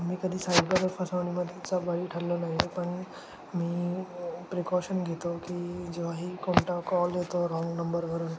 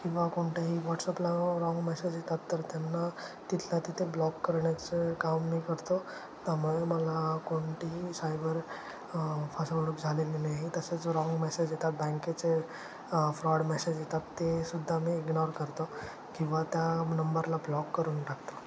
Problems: constant background noise